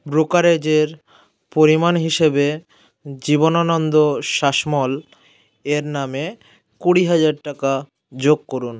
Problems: background sounds at intervals